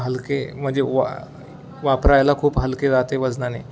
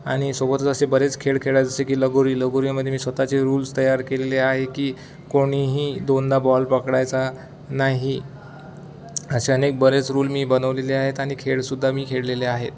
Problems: none marked